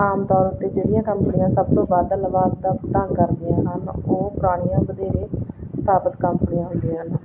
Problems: constant background noise